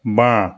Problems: none marked